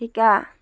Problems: none marked